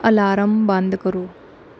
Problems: background sounds at intervals